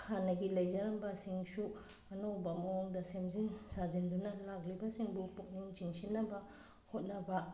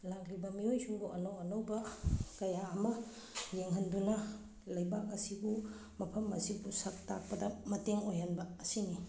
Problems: background sounds at intervals